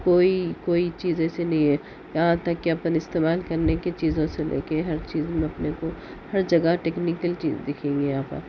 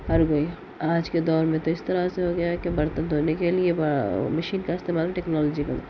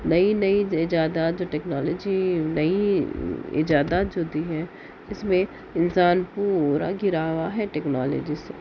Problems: constant background noise